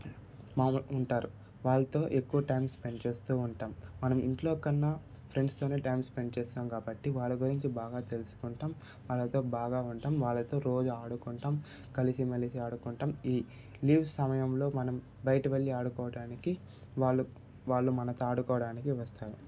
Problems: constant background noise, background conversations at intervals